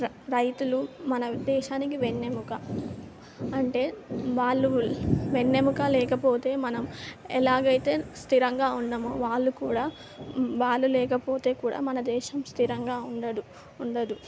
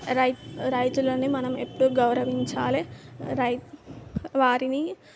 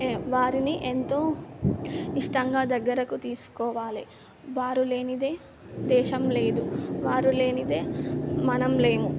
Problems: background sounds at intervals